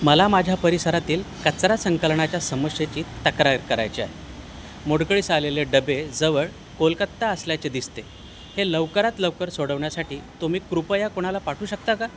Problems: constant background noise